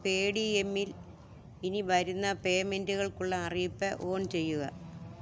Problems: low volume